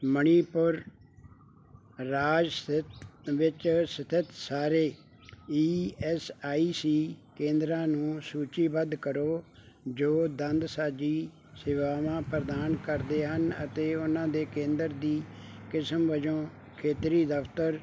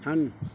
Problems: background sounds at intervals